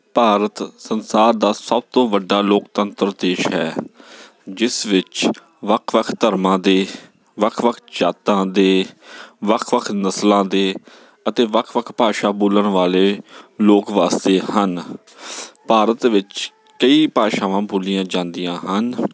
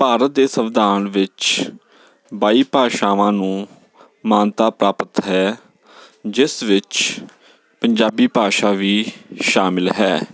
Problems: none marked